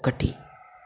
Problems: low volume